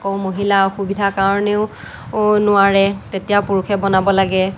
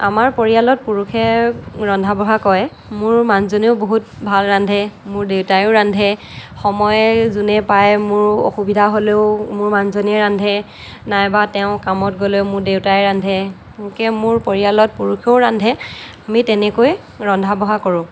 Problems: none marked